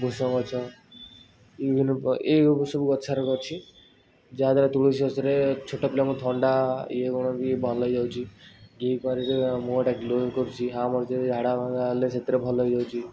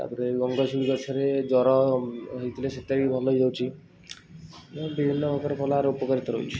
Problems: constant background noise